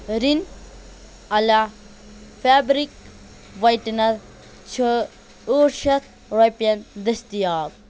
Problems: constant background noise